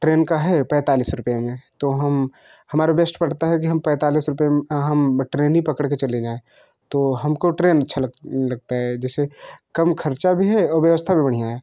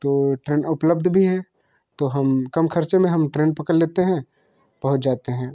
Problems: constant background noise